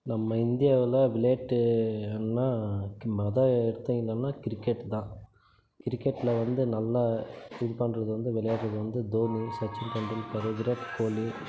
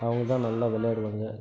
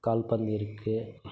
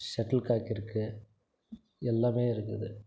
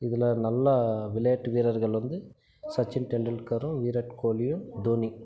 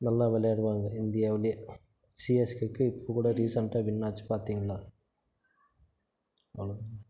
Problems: background sounds at intervals